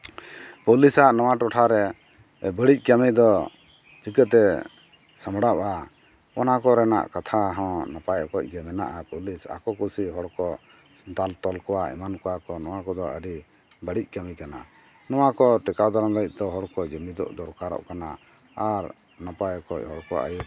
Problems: none marked